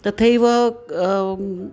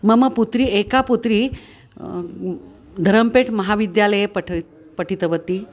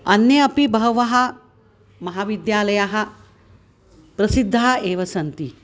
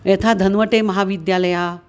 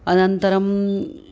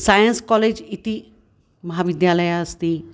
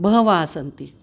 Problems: constant background noise